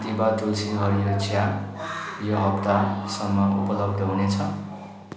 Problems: background sounds at intervals